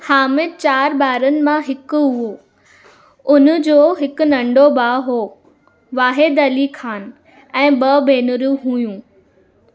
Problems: constant background noise